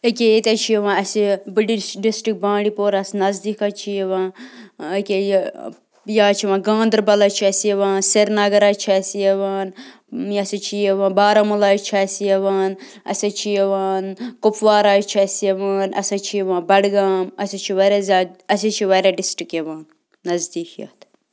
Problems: constant background noise